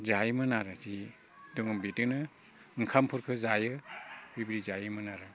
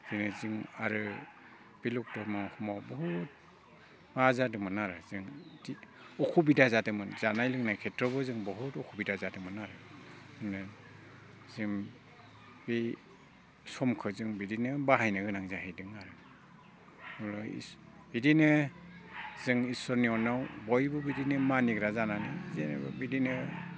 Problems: constant background noise